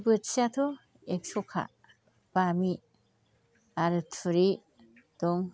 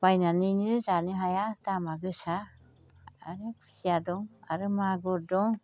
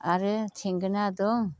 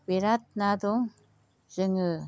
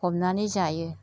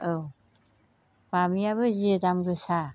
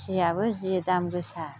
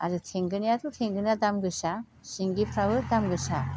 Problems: constant background noise